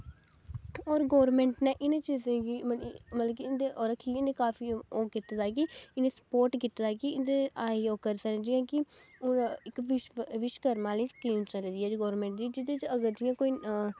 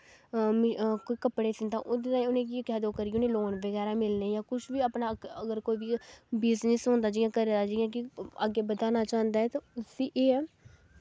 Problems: background sounds at intervals